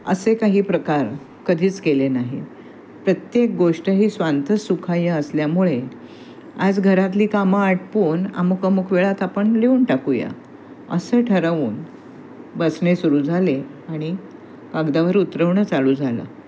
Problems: constant background noise, background conversations at intervals